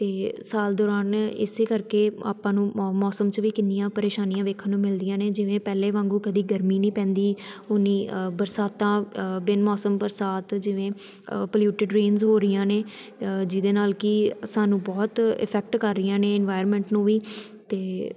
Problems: constant background noise